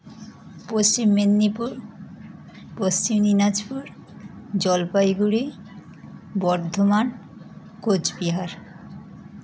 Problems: continuous background conversations